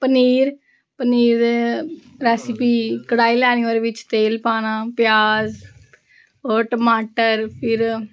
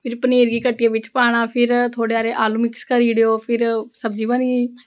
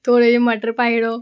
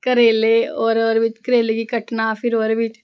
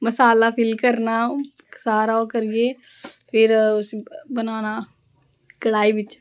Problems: background conversations at intervals